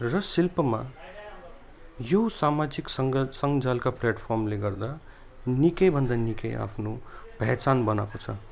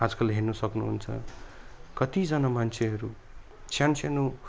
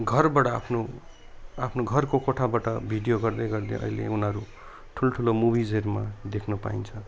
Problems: none marked